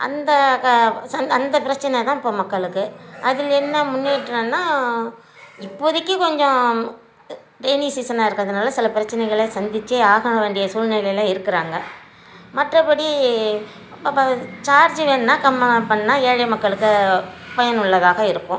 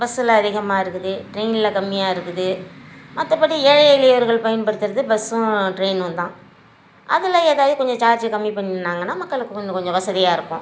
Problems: none marked